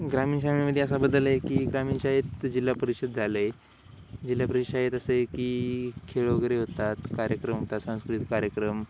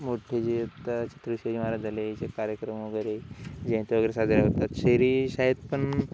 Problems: constant background noise